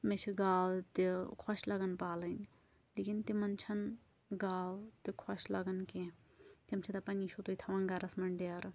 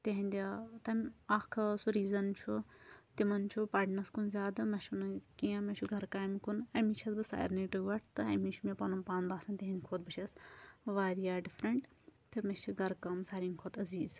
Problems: none marked